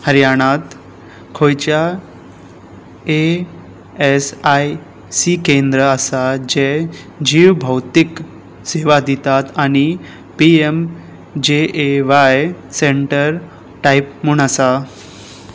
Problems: none marked